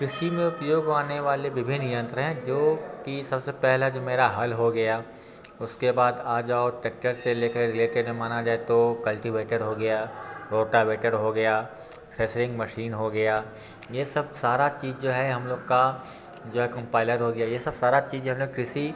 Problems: background sounds at intervals, background conversations at intervals